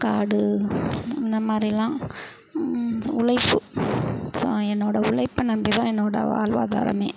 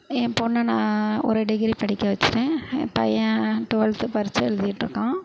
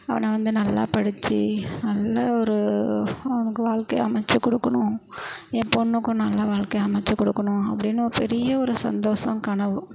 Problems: constant background noise